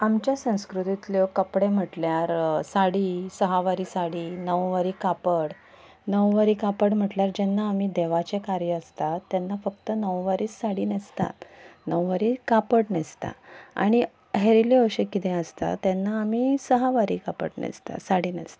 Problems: background sounds at intervals